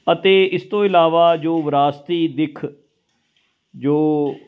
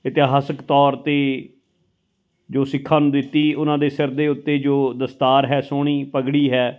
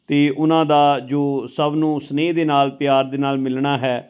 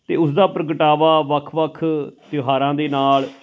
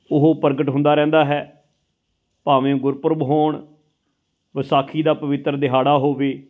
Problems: background sounds at intervals